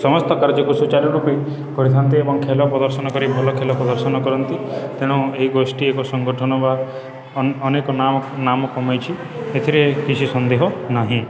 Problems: constant background noise, continuous background conversations